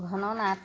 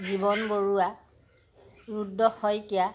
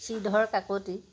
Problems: constant background noise